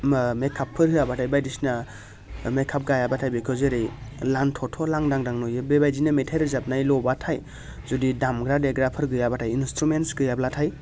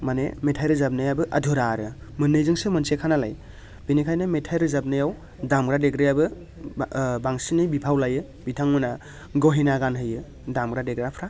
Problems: constant background noise